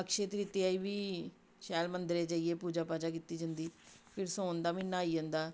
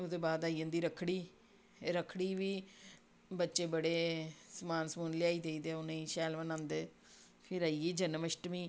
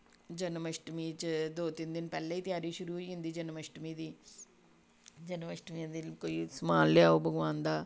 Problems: background sounds at intervals